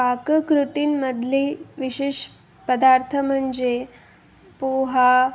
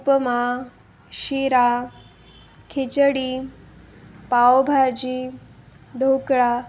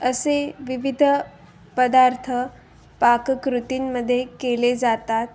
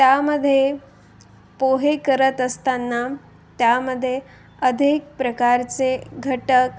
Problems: constant background noise